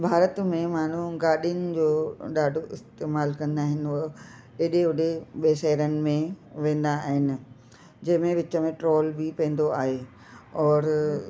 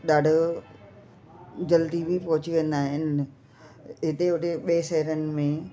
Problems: constant background noise, echo